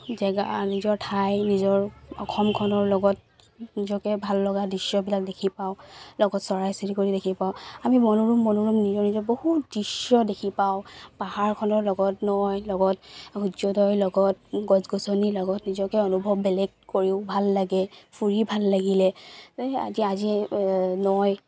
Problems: constant background noise